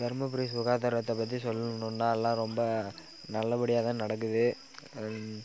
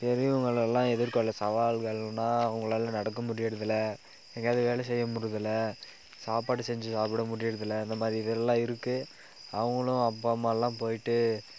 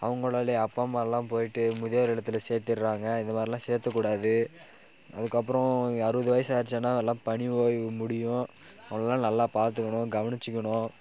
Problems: none marked